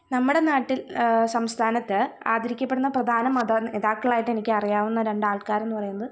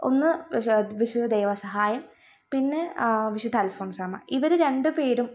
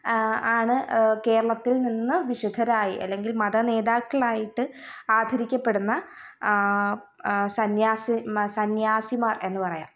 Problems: none marked